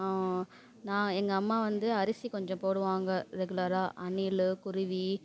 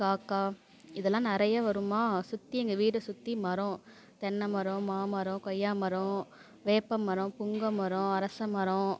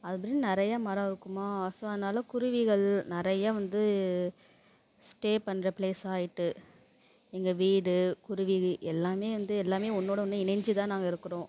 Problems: none marked